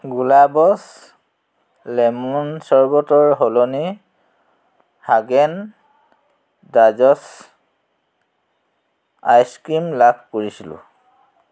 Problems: none marked